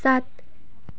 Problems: background sounds at intervals